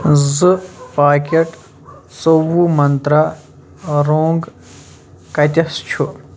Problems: background sounds at intervals